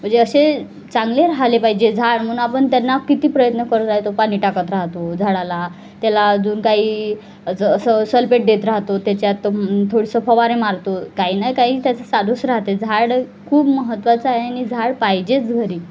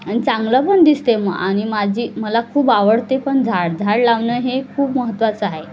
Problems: constant background noise, background conversations at intervals